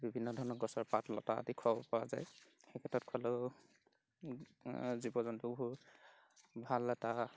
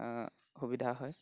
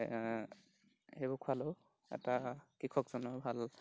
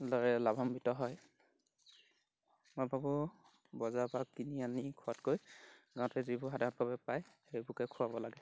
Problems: background sounds at intervals